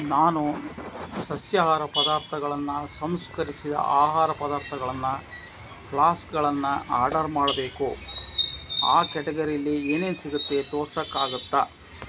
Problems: constant background noise